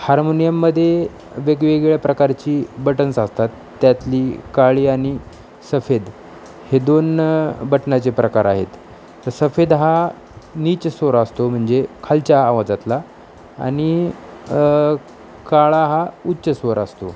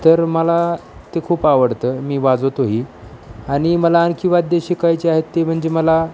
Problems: constant background noise, background conversations at intervals